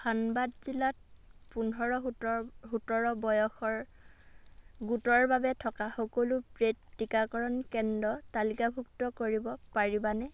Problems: background sounds at intervals